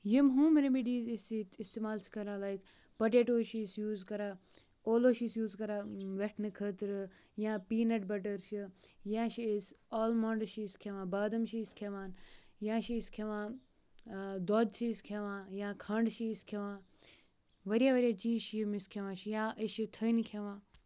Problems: none marked